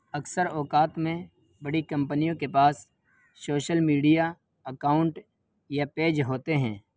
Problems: background sounds at intervals